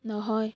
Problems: none marked